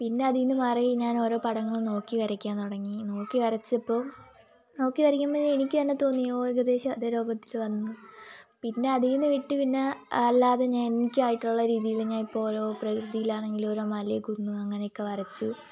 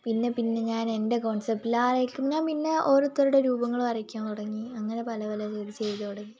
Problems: constant background noise, low volume